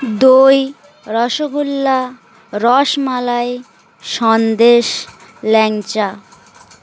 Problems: constant background noise, continuous background conversations